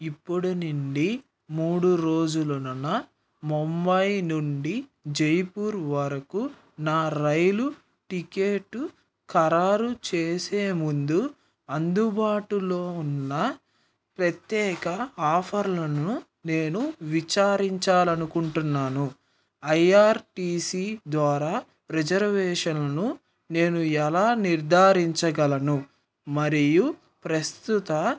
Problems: background sounds at intervals